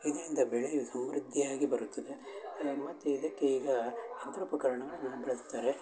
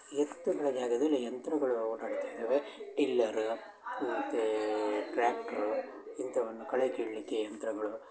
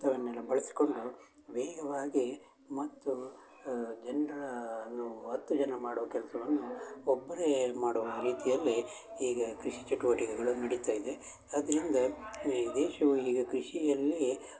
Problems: background sounds at intervals, continuous background conversations